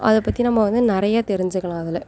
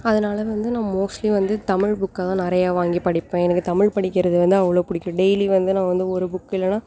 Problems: none marked